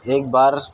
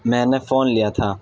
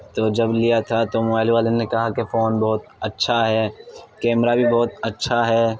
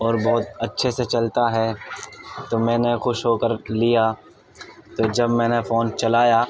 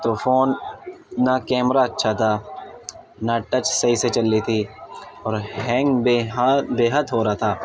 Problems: none marked